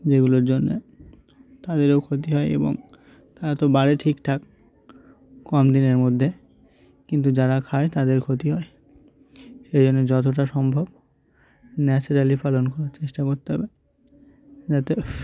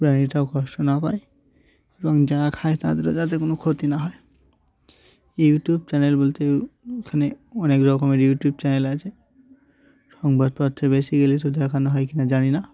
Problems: none marked